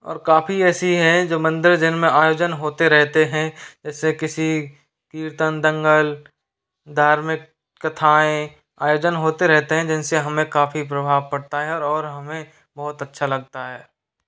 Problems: constant background noise